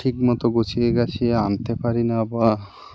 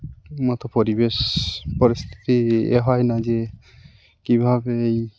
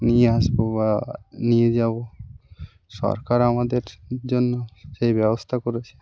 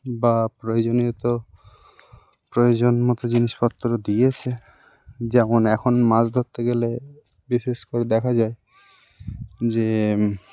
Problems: none marked